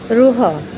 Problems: none marked